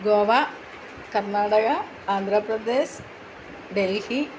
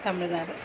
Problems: constant background noise